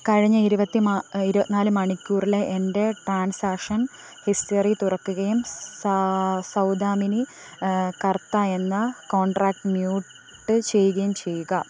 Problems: constant background noise